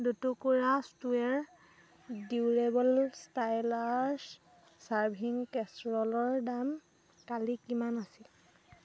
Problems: constant background noise